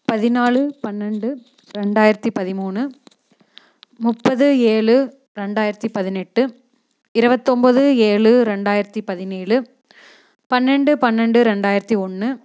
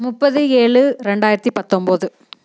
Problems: none marked